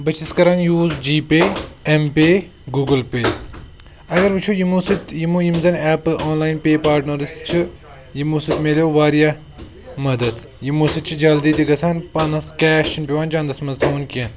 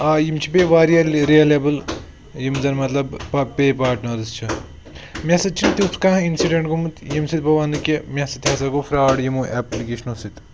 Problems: background sounds at intervals